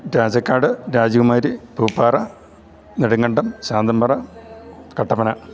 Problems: none marked